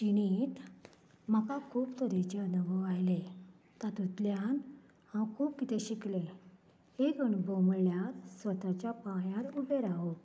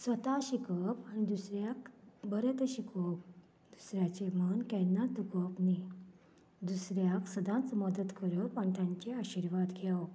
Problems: none marked